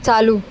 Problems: constant background noise